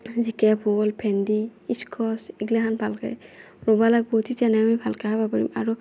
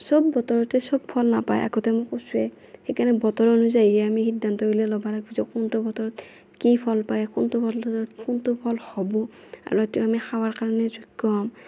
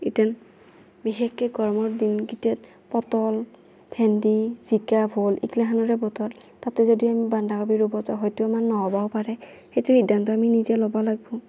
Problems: none marked